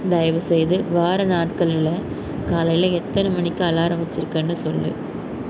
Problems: background sounds at intervals